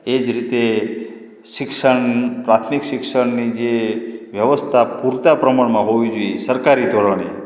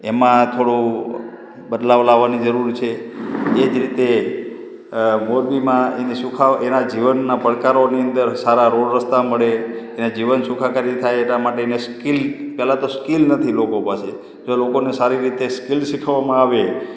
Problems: background conversations at intervals